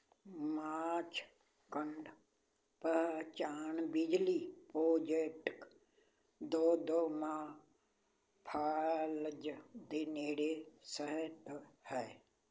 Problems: constant background noise